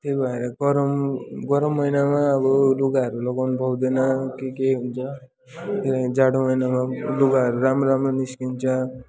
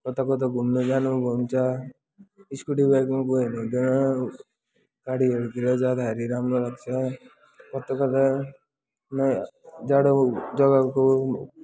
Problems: continuous background conversations